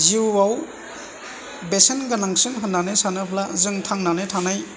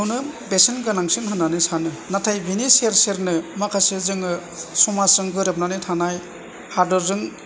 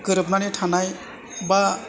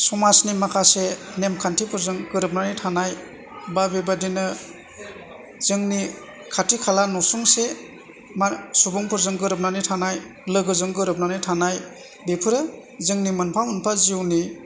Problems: none marked